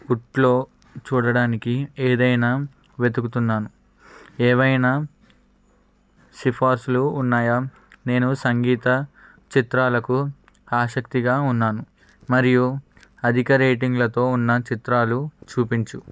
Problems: background sounds at intervals